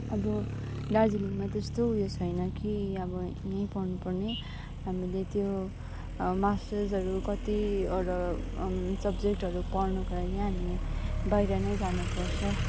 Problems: constant background noise